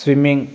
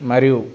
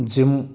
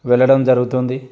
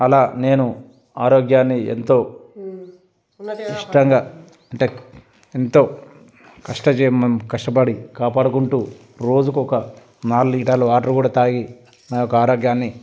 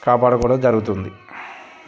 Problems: background sounds at intervals, background conversations at intervals